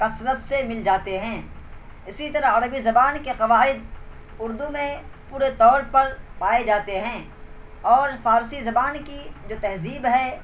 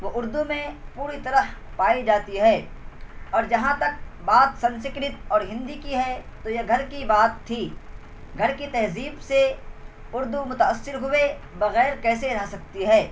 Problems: constant background noise